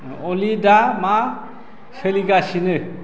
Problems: constant background noise